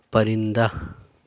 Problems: background sounds at intervals